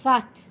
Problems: background sounds at intervals